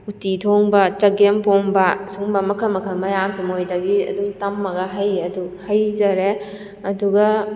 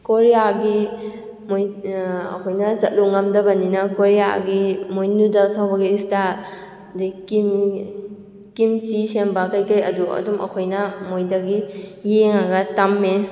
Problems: background sounds at intervals